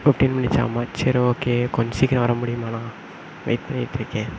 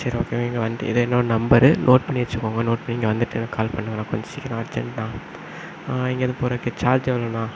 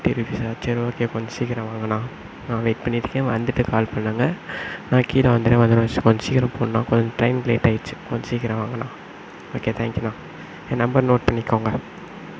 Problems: constant background noise